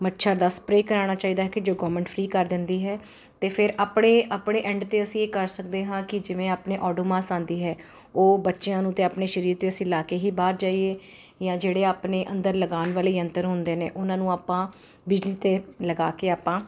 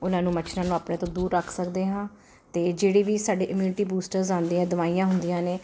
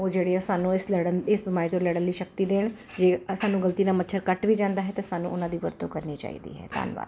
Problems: constant background noise